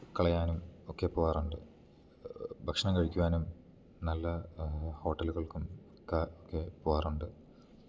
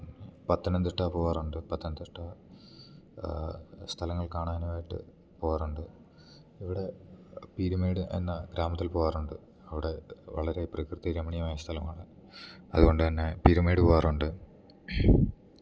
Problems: none marked